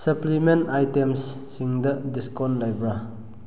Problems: low volume